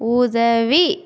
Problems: none marked